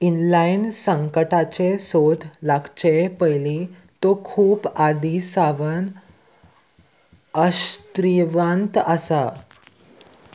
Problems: none marked